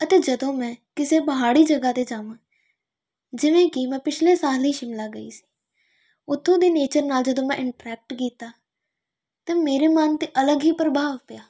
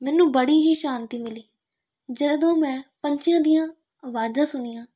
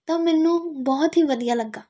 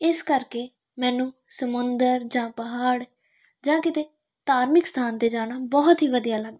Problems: none marked